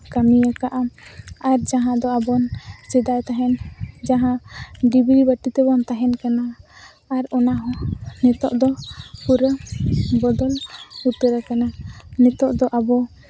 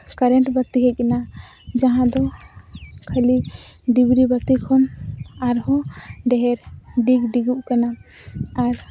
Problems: none marked